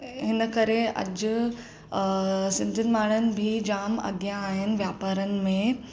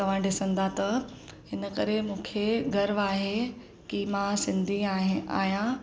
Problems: none marked